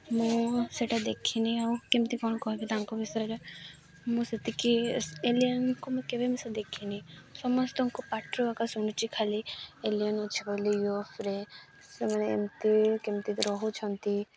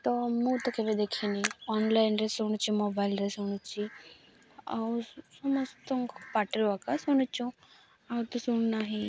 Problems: constant background noise